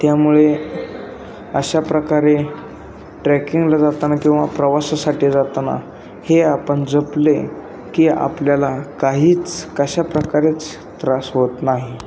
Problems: constant background noise